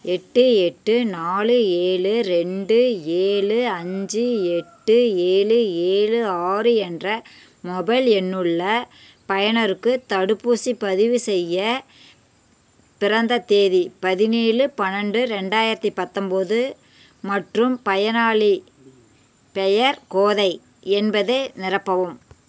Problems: constant background noise